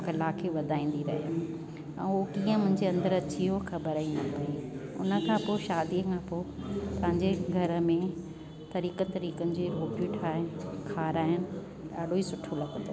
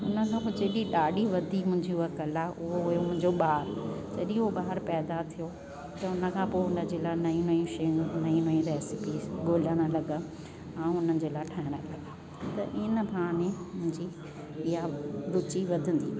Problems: constant background noise